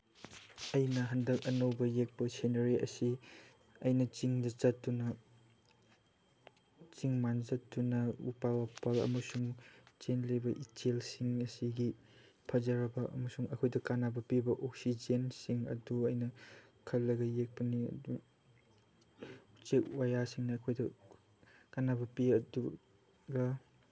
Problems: none marked